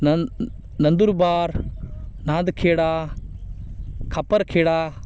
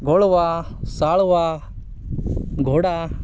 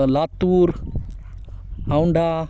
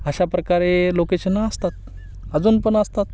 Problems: constant background noise, background conversations at intervals